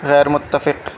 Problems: constant background noise